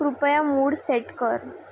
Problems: none marked